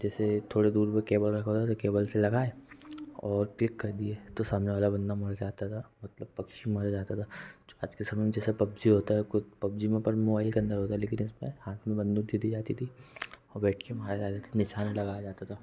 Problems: low volume